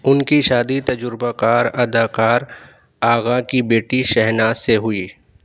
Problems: none marked